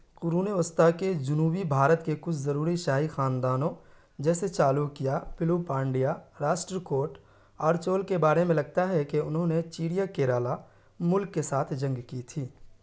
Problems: none marked